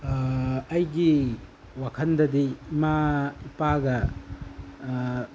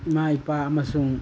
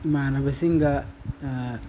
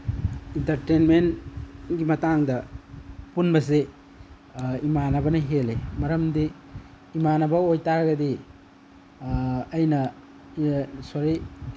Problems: none marked